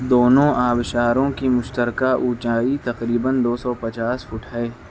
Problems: constant background noise